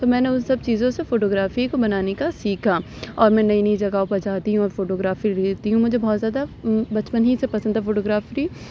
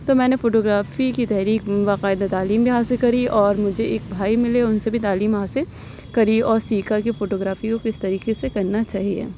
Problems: none marked